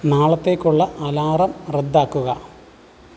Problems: none marked